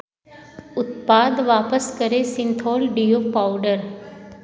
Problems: background sounds at intervals